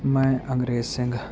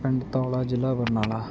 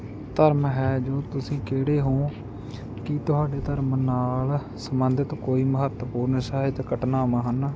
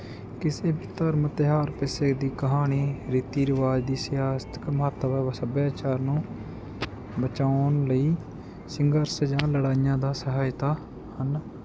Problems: constant background noise